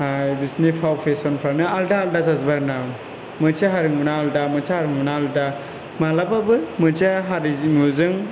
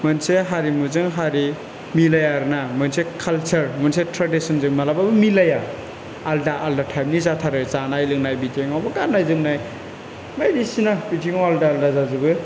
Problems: constant background noise